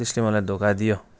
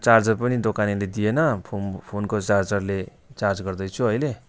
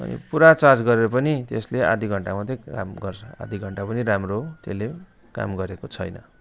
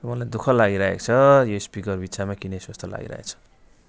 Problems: constant background noise, continuous background conversations